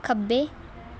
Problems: background conversations at intervals